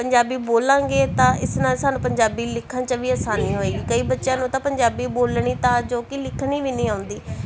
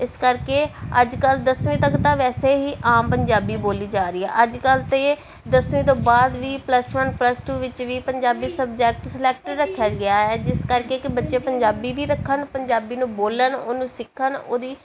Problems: continuous background conversations